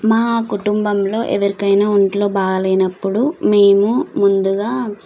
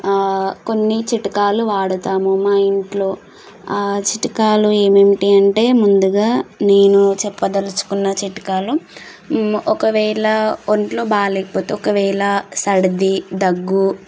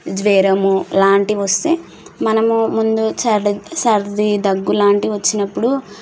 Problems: constant background noise